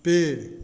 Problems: none marked